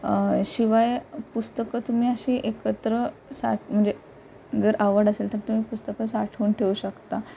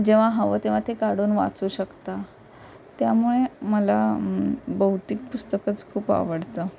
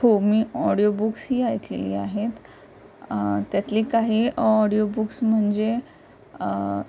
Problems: constant background noise